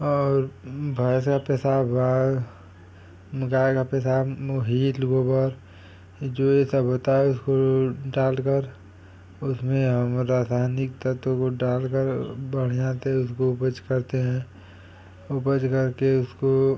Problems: constant background noise